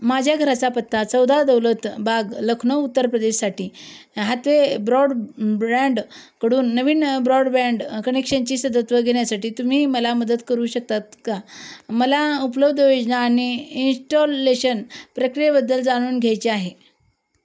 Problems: constant background noise